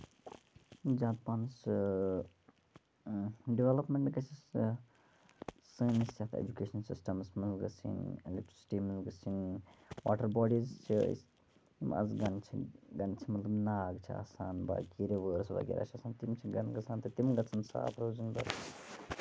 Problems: low volume